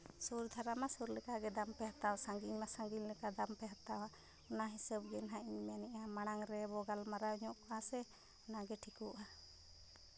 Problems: background sounds at intervals